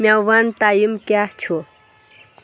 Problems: background sounds at intervals